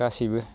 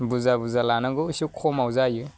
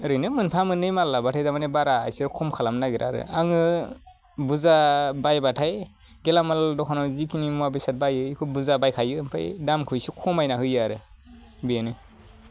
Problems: none marked